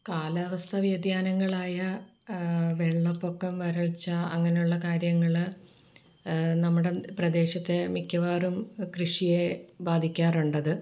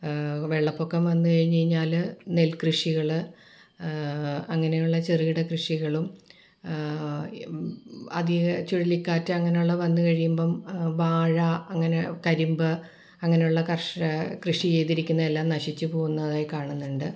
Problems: background sounds at intervals